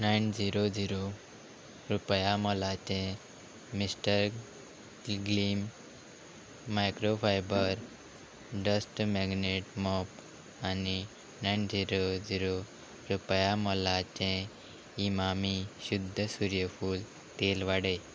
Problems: constant background noise